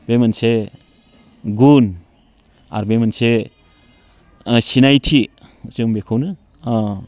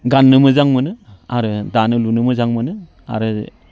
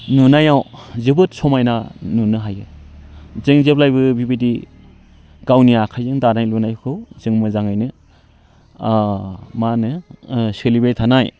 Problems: none marked